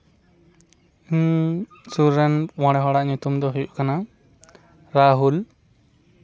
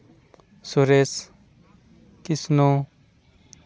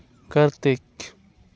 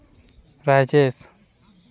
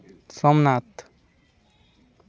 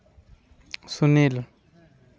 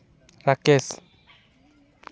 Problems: none marked